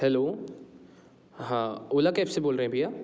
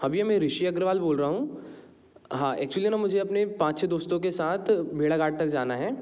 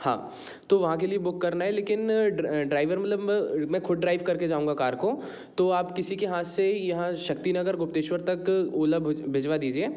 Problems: none marked